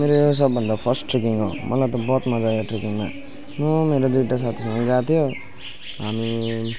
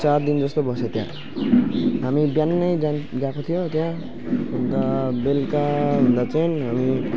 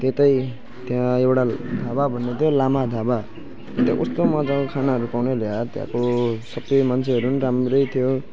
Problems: background sounds at intervals